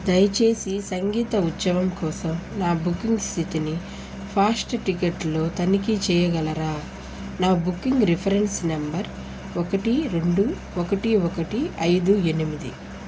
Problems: constant background noise